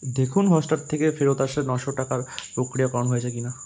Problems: constant background noise